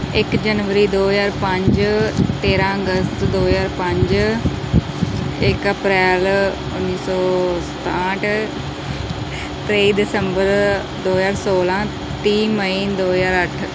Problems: none marked